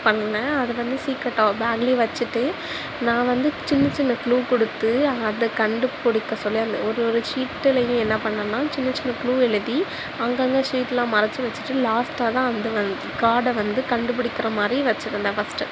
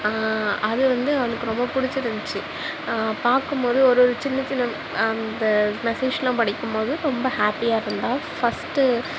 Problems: background sounds at intervals